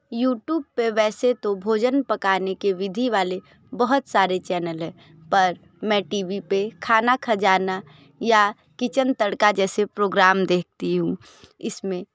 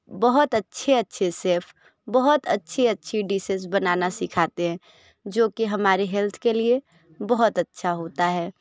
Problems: background sounds at intervals